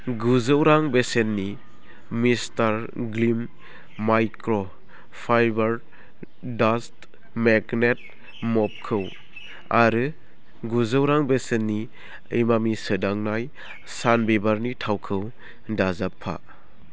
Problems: none marked